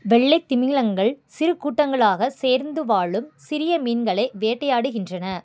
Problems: none marked